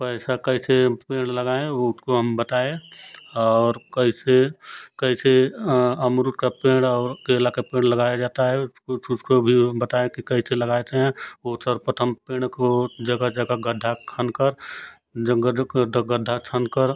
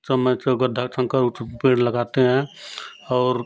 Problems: constant background noise